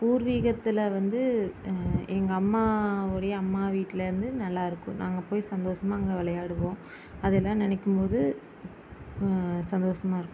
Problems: constant background noise